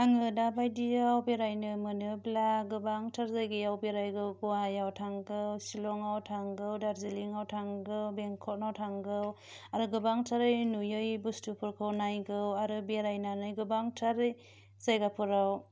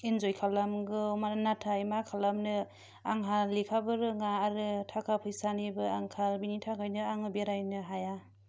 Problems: low volume